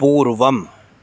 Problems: constant background noise